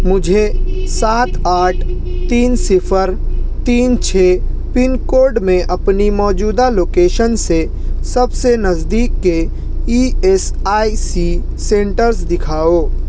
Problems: constant background noise